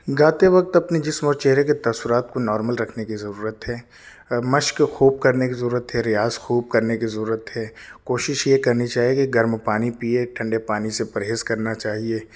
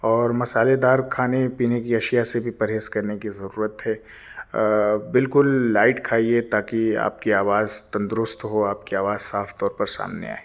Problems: none marked